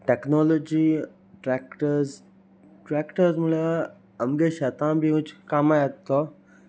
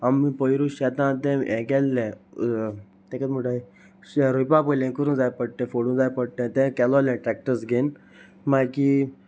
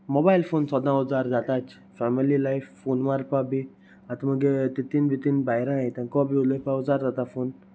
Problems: none marked